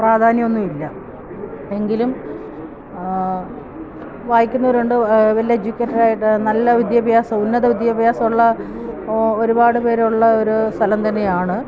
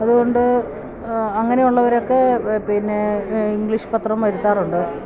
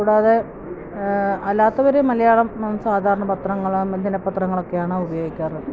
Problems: constant background noise